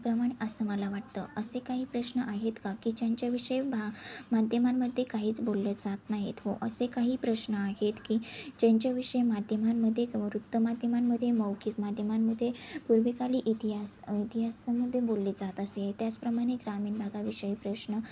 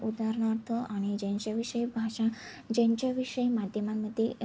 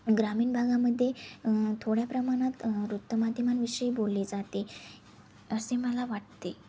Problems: constant background noise, background conversations at intervals